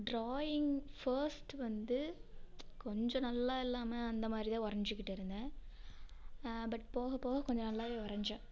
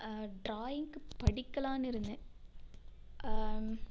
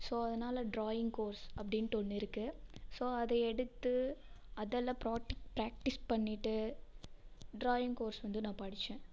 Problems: background sounds at intervals